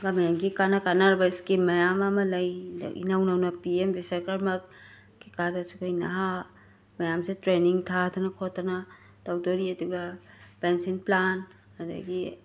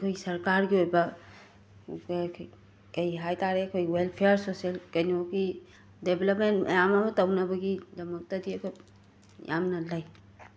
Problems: constant background noise